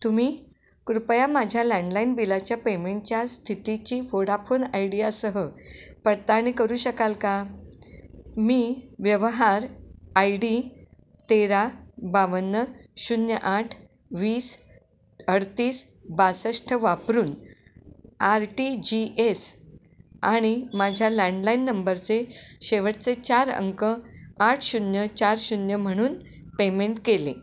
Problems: constant background noise